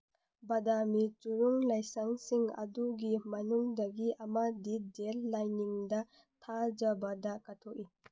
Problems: none marked